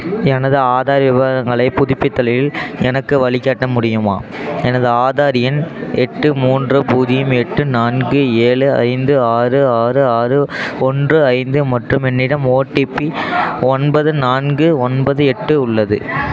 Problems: continuous background conversations